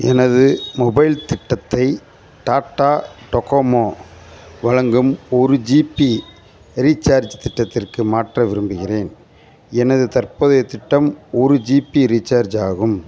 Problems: constant background noise, background conversations at intervals